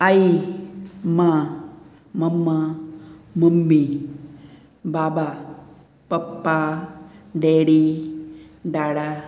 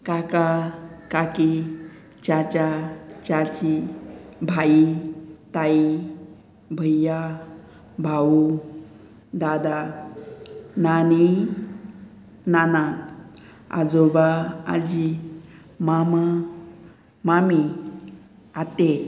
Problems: background sounds at intervals